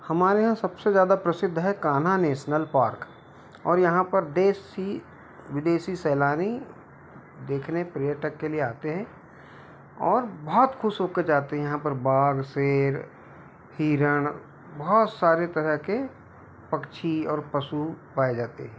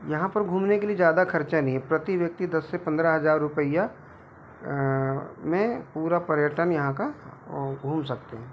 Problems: constant background noise